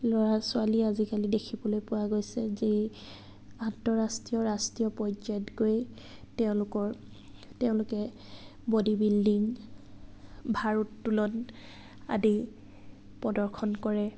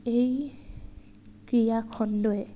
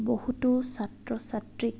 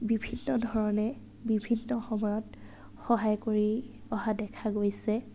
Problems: none marked